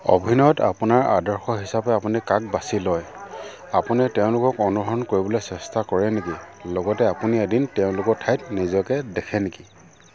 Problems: none marked